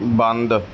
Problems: background sounds at intervals